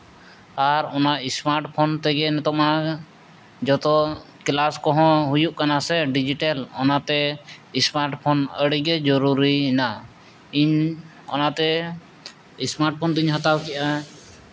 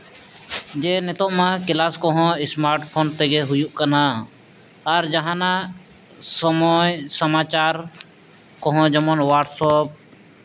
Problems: none marked